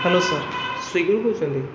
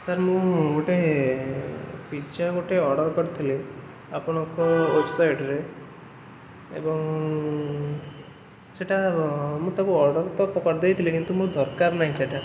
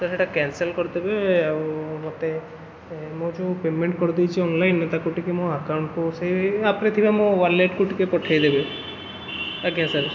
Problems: constant background noise